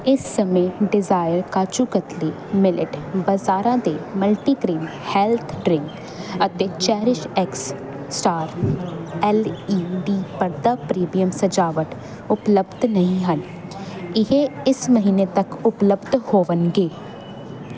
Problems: constant background noise